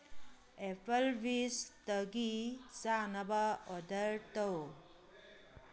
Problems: background sounds at intervals